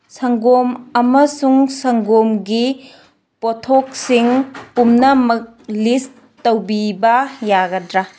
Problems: background sounds at intervals